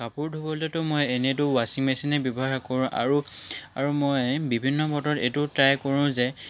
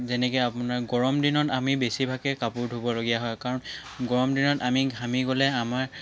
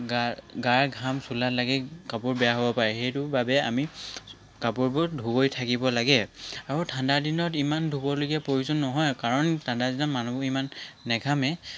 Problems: constant background noise